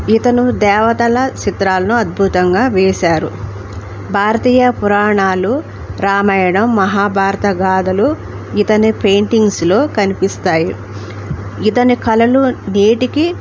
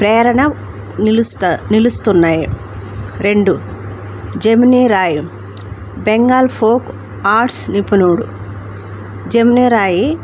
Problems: none marked